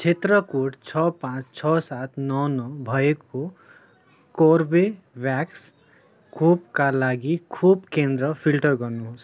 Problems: continuous background conversations